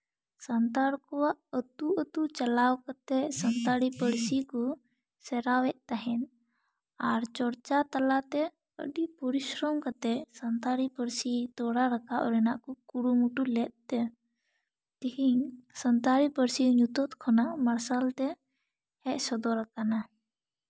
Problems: none marked